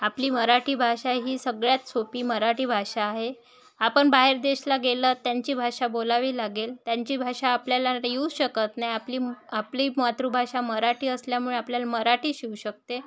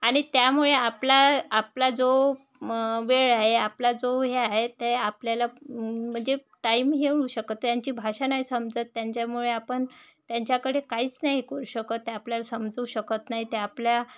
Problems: background sounds at intervals, background conversations at intervals